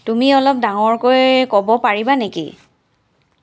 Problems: none marked